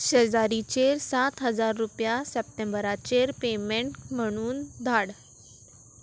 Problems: none marked